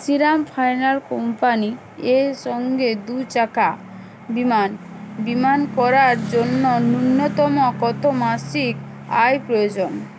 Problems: background conversations at intervals